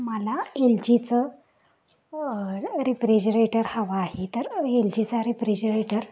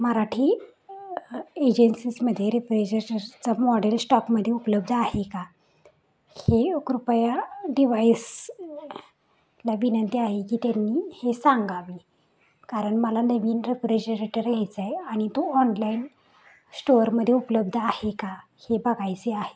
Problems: none marked